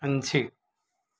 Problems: none marked